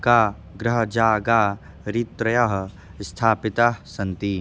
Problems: none marked